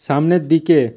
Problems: constant background noise